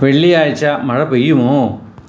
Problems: constant background noise